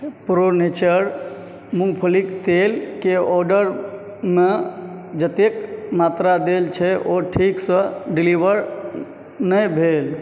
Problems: background sounds at intervals